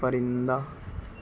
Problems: background sounds at intervals